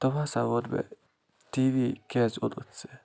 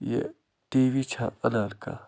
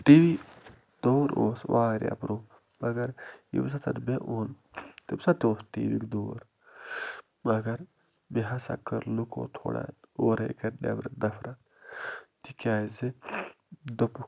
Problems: constant background noise